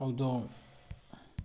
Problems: low volume